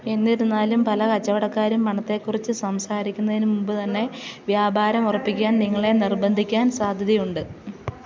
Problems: background sounds at intervals